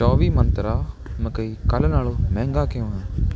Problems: constant background noise